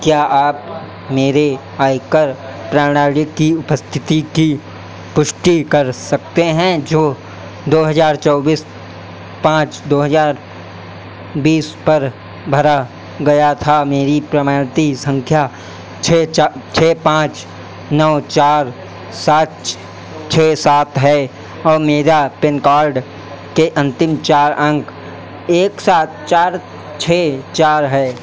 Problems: none marked